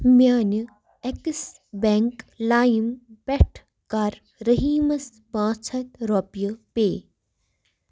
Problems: none marked